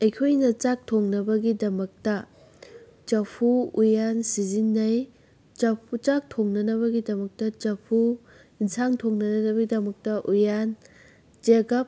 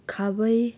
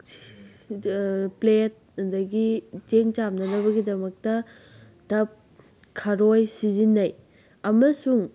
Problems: background sounds at intervals